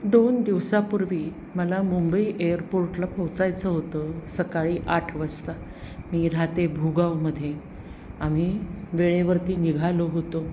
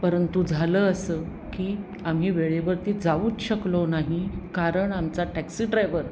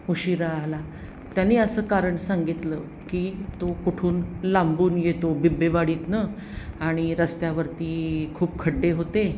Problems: constant background noise